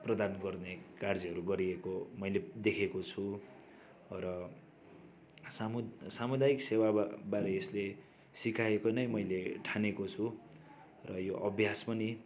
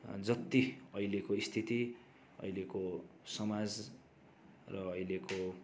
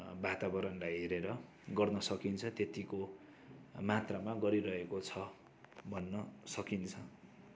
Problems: continuous background conversations